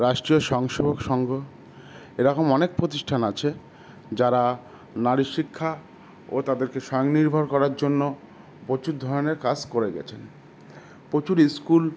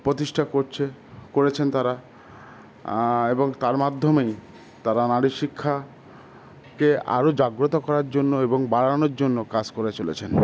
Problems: constant background noise